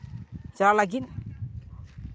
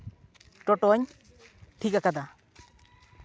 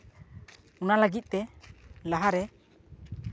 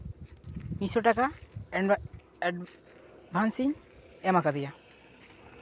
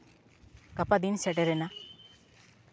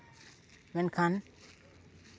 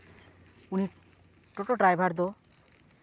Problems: constant background noise